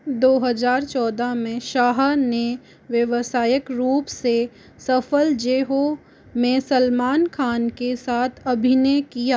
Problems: constant background noise